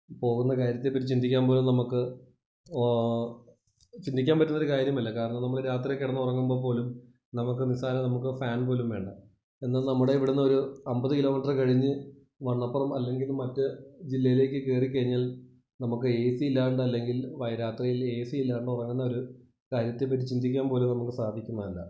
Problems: low volume